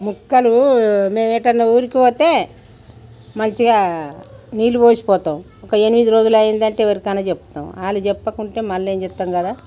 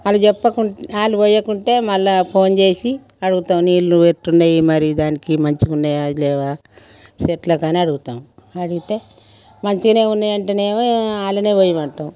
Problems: background sounds at intervals